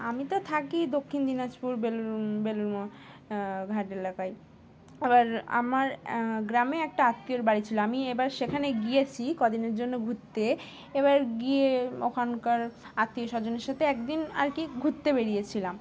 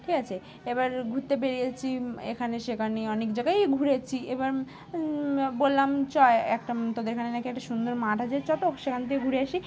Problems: constant background noise, background conversations at intervals